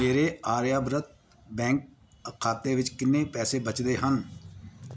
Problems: none marked